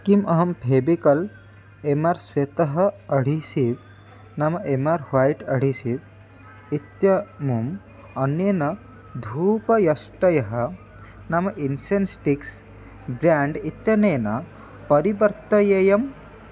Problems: none marked